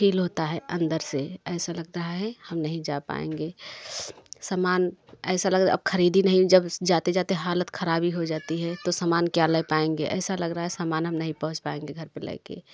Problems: background sounds at intervals, continuous background conversations